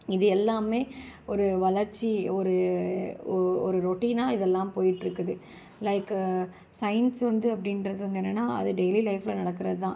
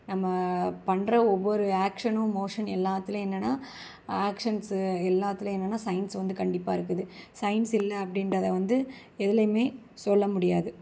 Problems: constant background noise